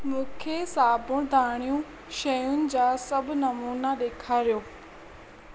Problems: constant background noise